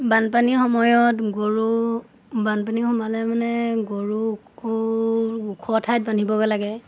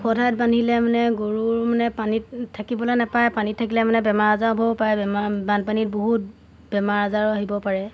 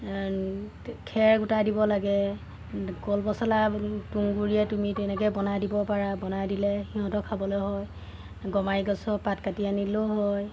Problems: constant background noise